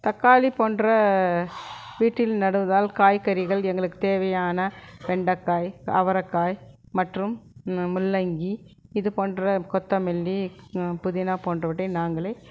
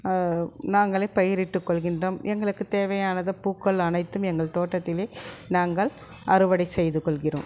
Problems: background sounds at intervals, continuous background conversations